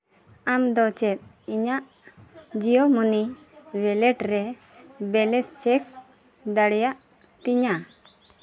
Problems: background conversations at intervals